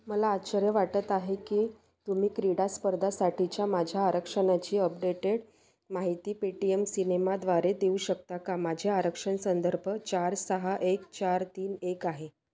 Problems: none marked